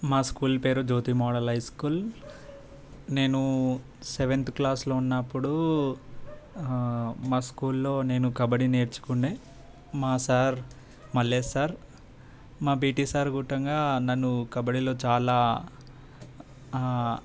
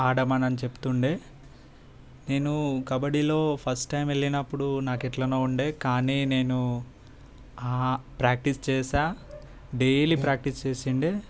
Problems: background sounds at intervals